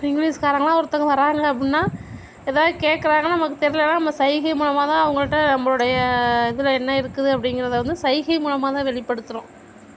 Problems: none marked